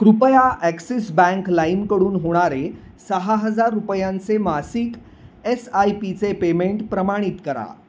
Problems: constant background noise